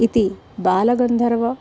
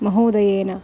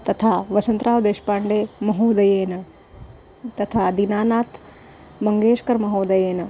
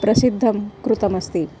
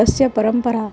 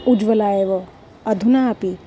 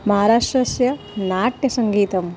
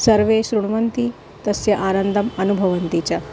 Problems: background sounds at intervals